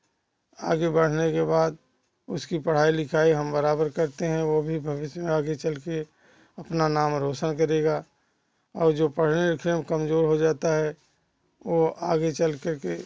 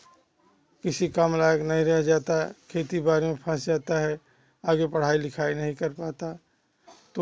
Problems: constant background noise